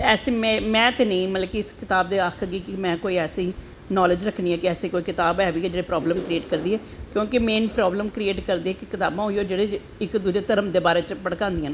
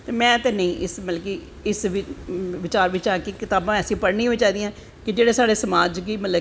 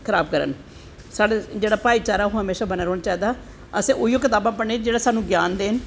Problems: none marked